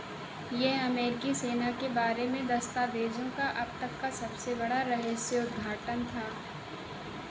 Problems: constant background noise